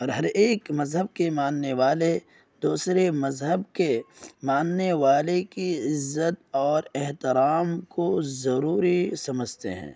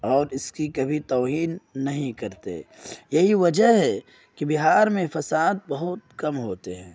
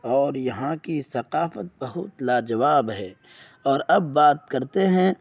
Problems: none marked